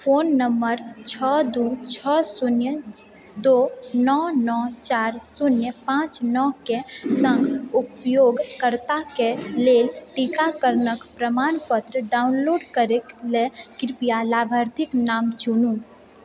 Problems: none marked